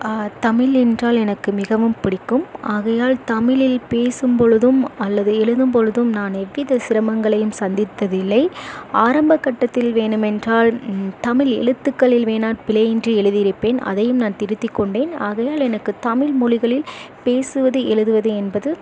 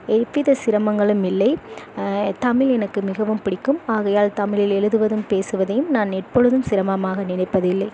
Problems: constant background noise